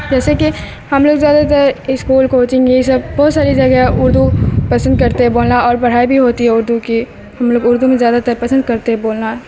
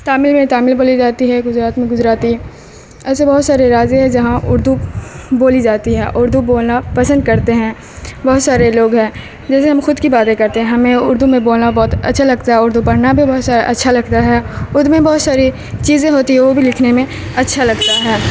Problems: constant background noise, background conversations at intervals